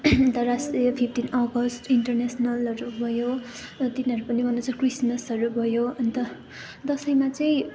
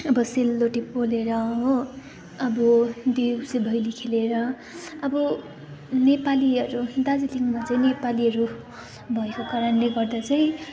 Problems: background conversations at intervals